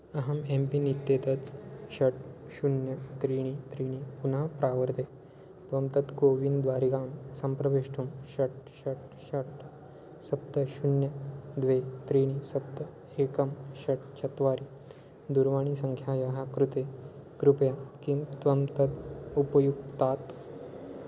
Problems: constant background noise